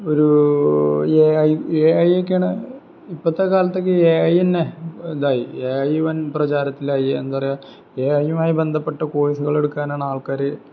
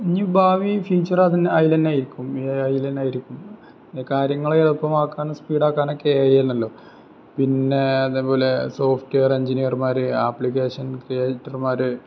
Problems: background sounds at intervals